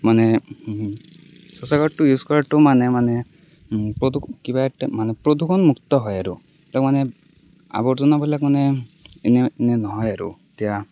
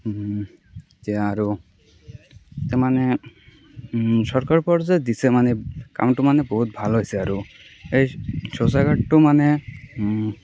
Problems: none marked